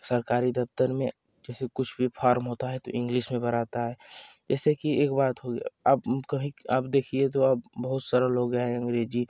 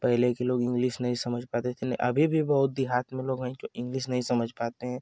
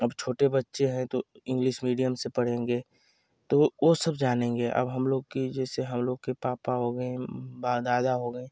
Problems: constant background noise